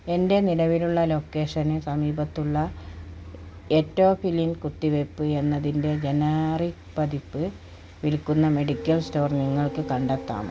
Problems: none marked